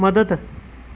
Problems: none marked